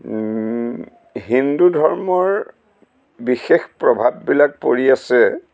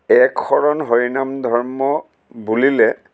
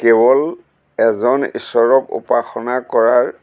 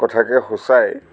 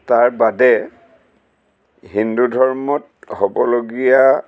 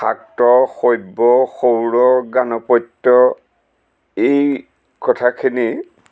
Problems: constant background noise